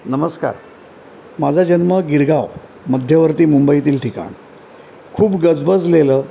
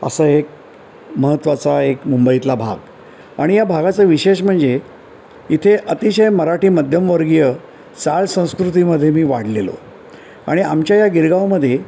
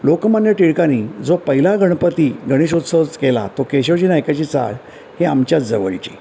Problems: constant background noise